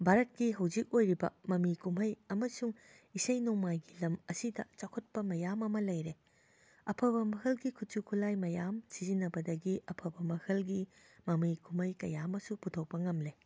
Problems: none marked